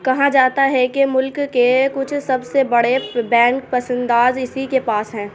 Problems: none marked